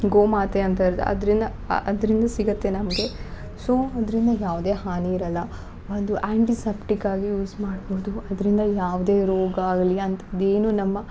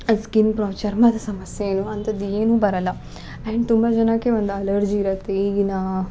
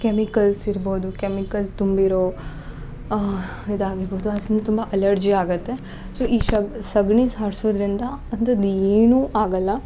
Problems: none marked